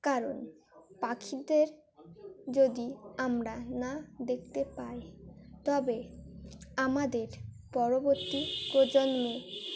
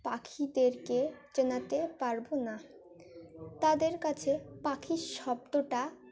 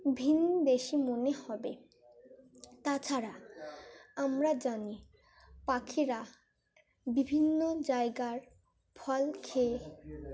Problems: continuous background conversations